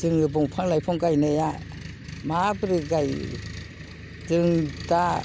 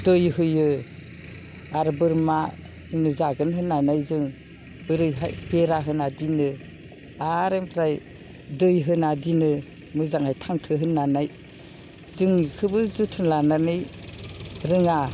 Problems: none marked